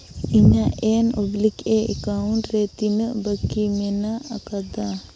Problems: background conversations at intervals